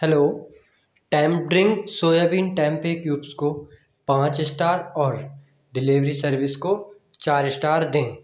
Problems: background sounds at intervals, echo